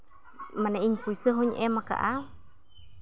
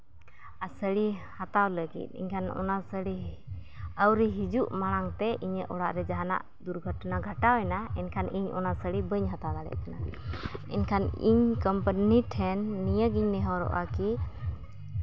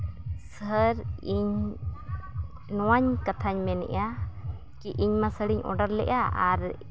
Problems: constant background noise